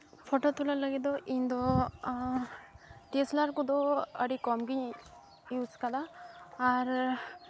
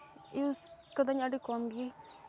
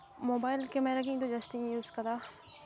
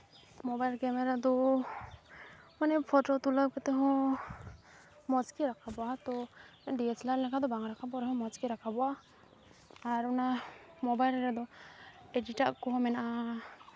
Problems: none marked